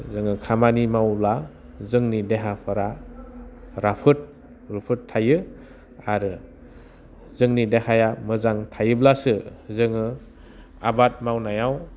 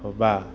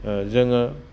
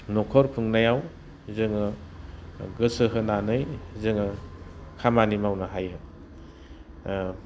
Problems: none marked